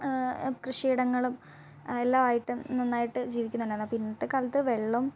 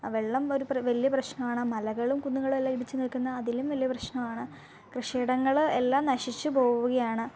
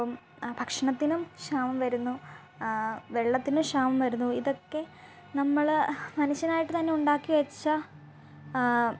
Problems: background sounds at intervals, low volume